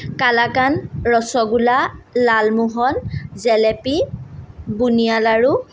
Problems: none marked